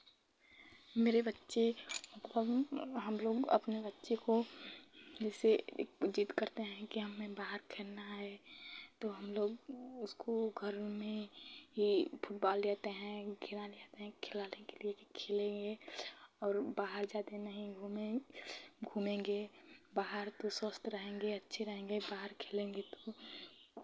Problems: background sounds at intervals